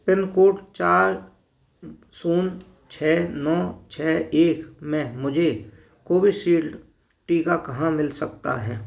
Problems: background sounds at intervals